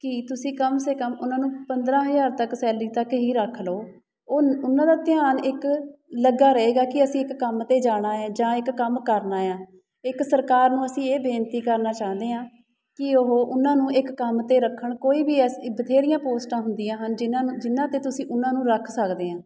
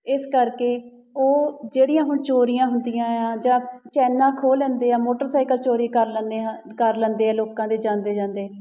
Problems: background sounds at intervals